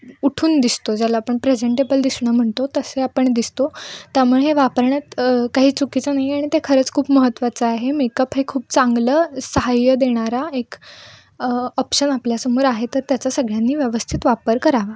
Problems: background sounds at intervals